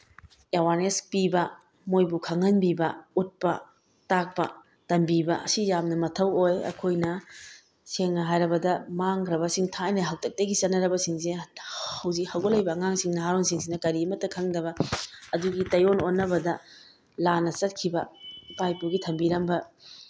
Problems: none marked